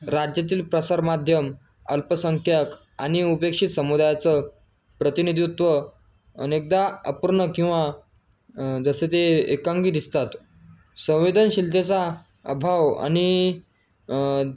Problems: constant background noise